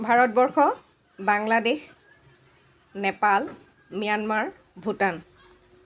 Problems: background sounds at intervals, background conversations at intervals